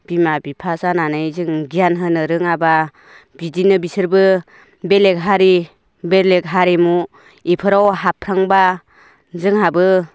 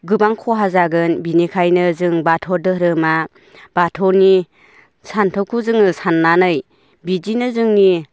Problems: none marked